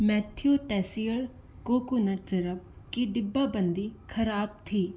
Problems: constant background noise